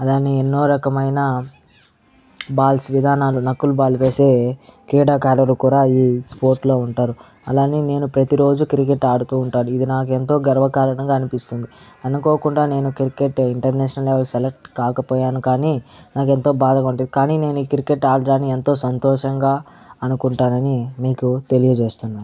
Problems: background sounds at intervals, background conversations at intervals